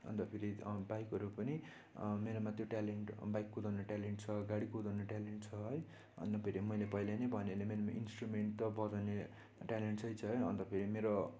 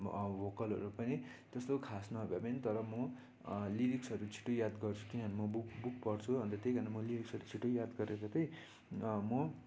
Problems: constant background noise